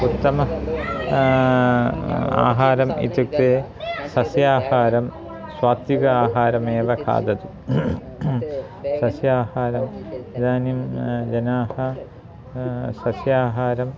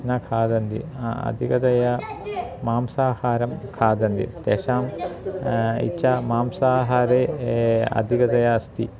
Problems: constant background noise, continuous background conversations